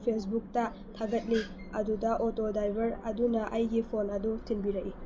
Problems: constant background noise